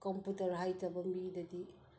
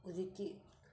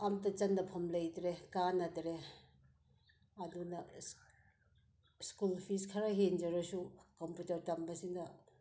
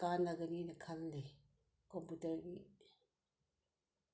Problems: none marked